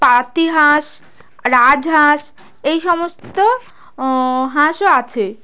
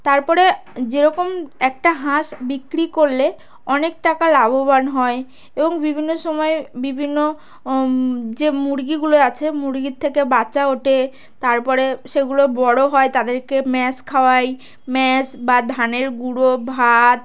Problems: none marked